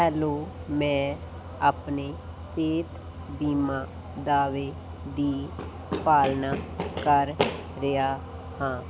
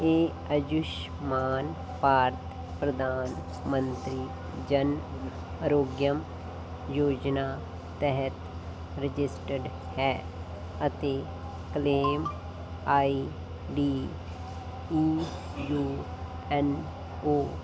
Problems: constant background noise